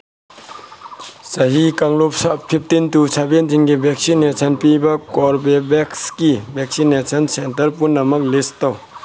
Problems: background sounds at intervals